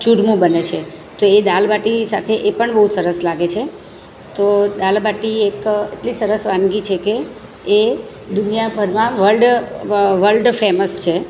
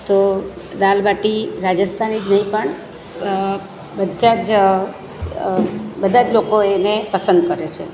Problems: none marked